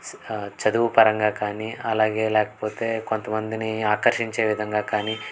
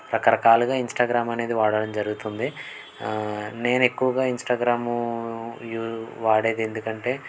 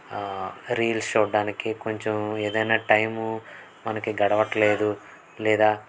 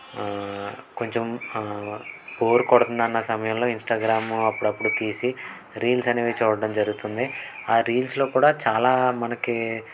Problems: background sounds at intervals